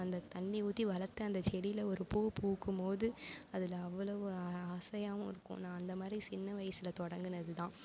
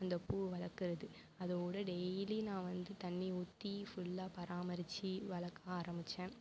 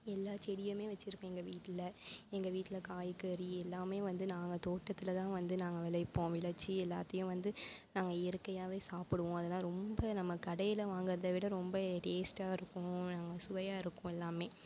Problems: none marked